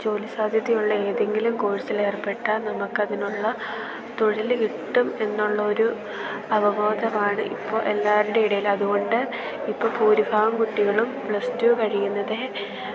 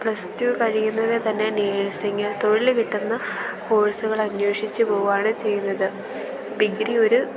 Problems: background sounds at intervals